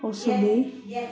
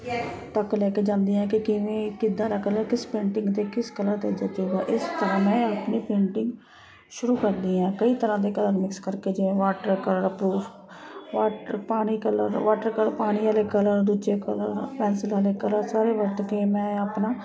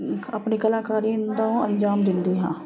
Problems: constant background noise